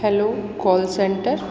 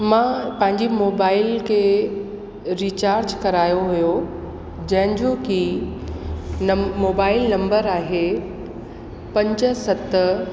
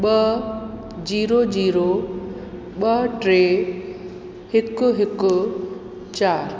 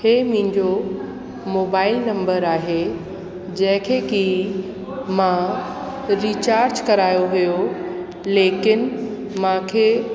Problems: constant background noise, echo